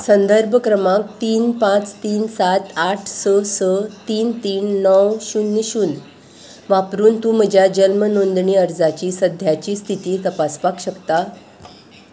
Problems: constant background noise